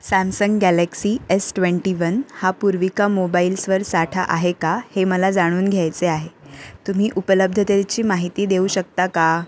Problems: constant background noise